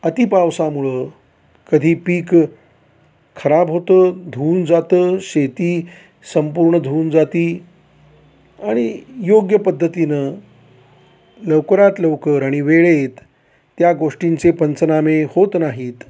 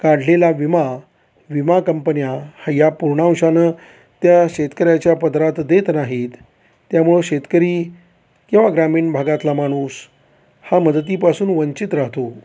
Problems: none marked